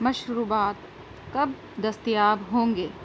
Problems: constant background noise